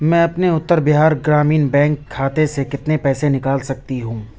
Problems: none marked